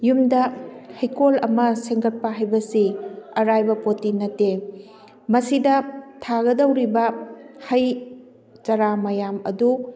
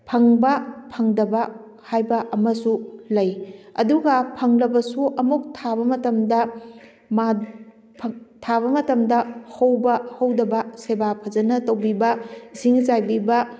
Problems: background conversations at intervals